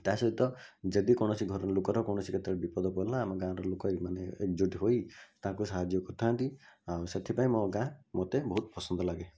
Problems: none marked